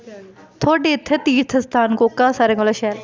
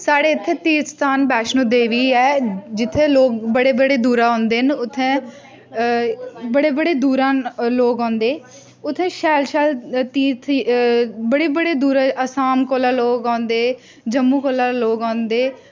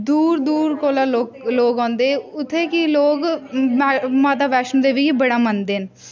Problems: constant background noise, background conversations at intervals